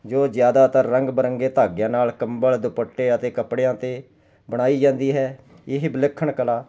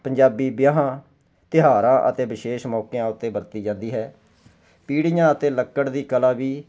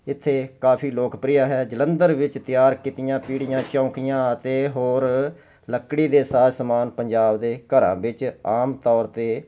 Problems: constant background noise